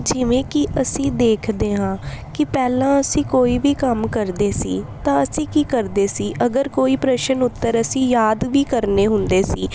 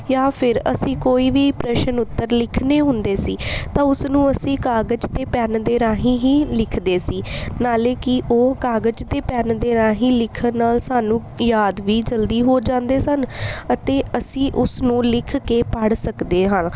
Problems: none marked